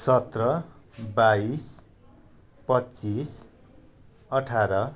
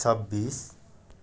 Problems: constant background noise